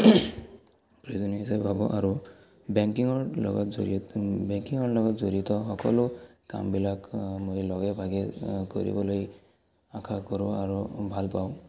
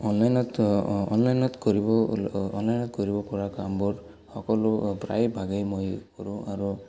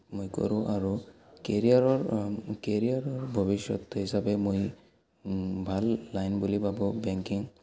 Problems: background sounds at intervals, background conversations at intervals